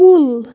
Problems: none marked